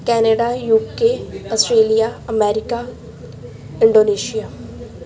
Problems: background sounds at intervals